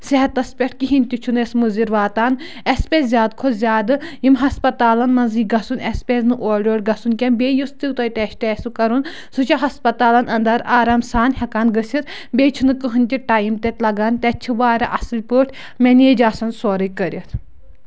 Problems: none marked